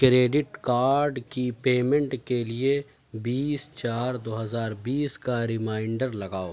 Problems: none marked